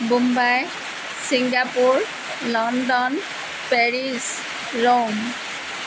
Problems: constant background noise